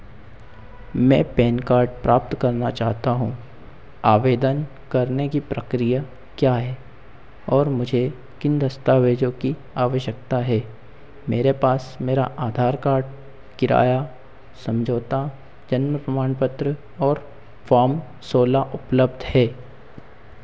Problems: constant background noise, echo